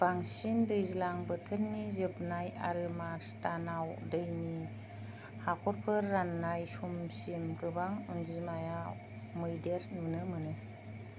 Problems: low volume